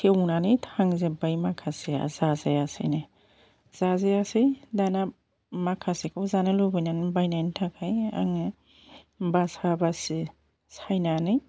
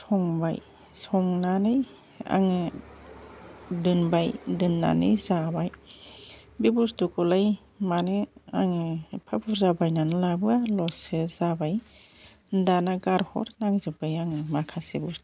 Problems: constant background noise